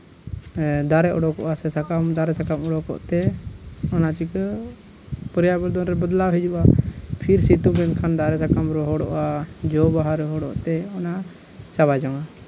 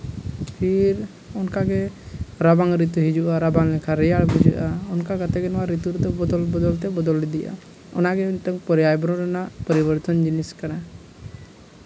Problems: background sounds at intervals, low volume